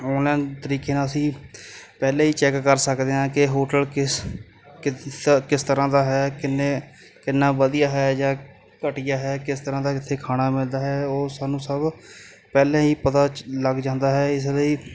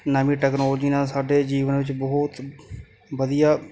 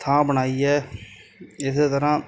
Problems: none marked